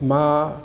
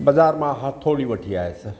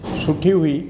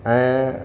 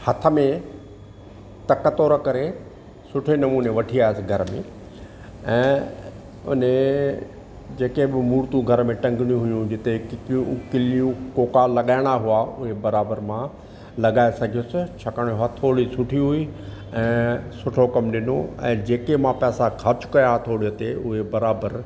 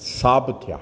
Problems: none marked